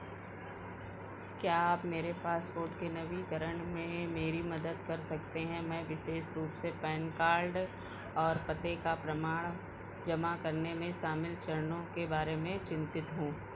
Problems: background sounds at intervals